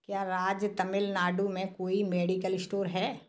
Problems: background sounds at intervals